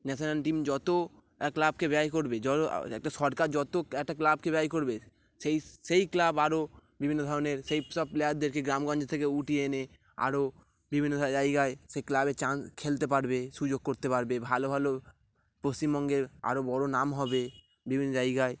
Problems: none marked